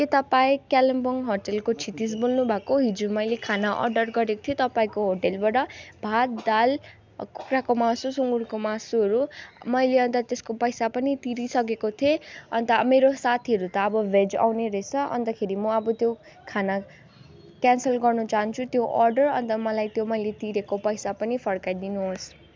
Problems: none marked